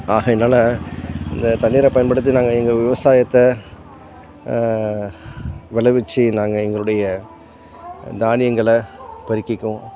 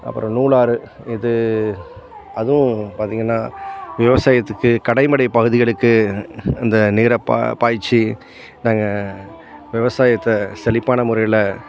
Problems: constant background noise